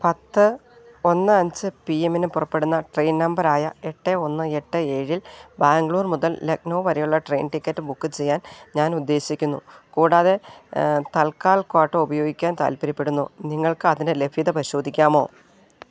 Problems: none marked